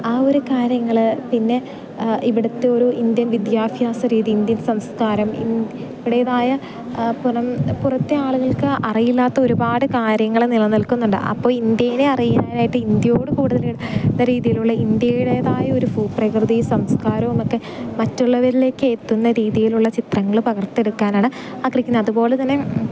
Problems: background sounds at intervals